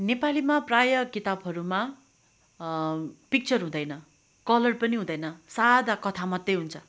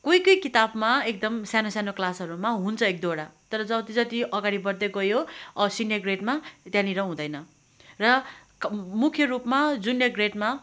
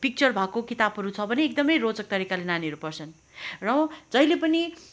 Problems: none marked